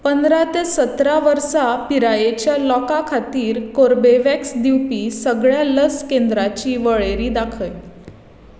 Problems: constant background noise, echo